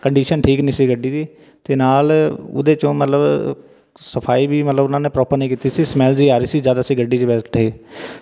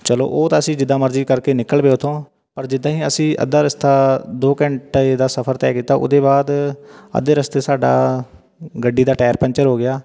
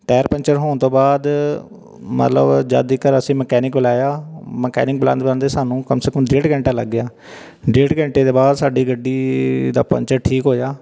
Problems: none marked